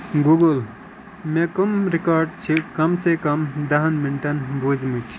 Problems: constant background noise